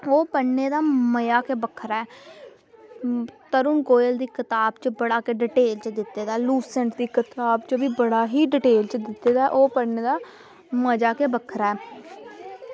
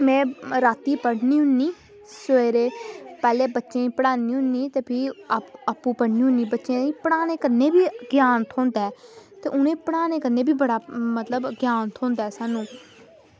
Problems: constant background noise